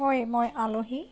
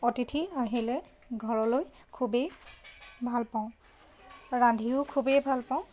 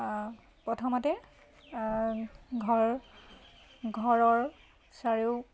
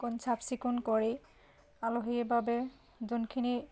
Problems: constant background noise